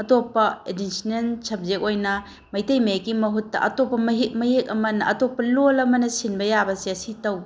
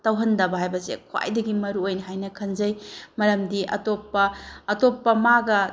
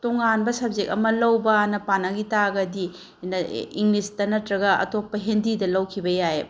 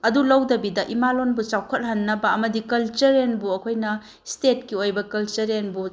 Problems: background conversations at intervals